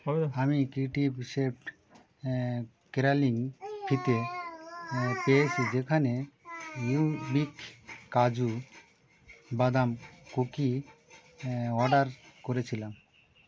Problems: none marked